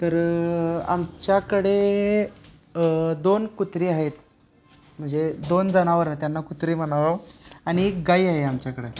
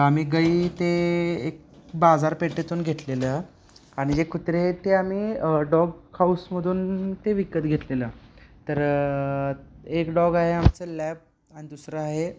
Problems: constant background noise